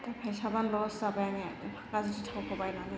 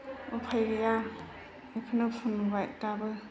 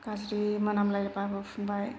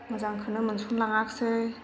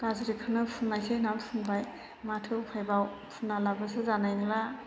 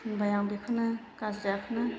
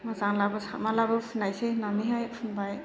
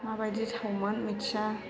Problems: constant background noise